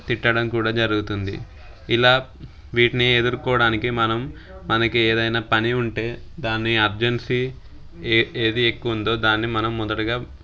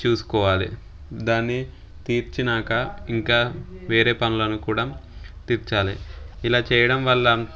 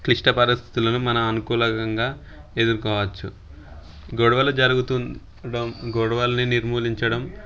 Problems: background sounds at intervals